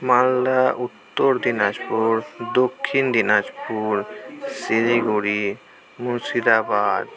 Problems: continuous background conversations